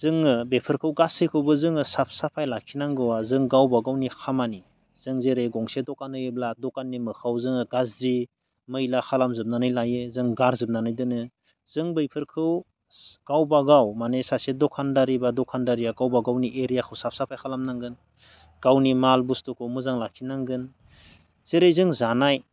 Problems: none marked